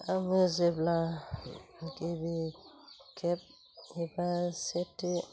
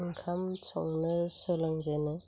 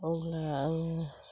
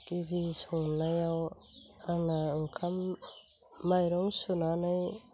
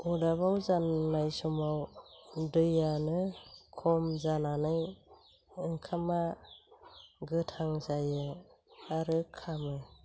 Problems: low volume